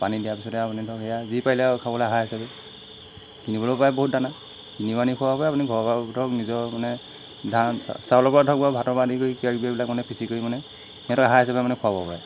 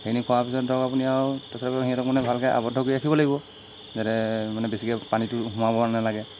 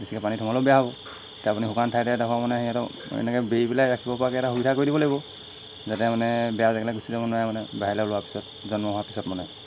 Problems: constant background noise